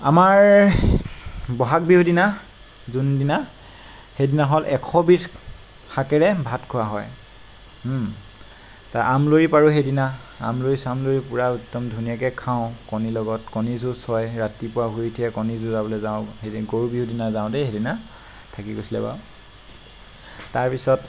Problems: constant background noise